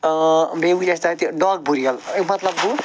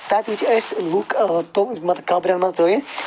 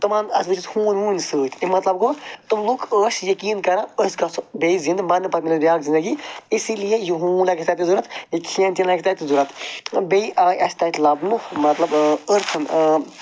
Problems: none marked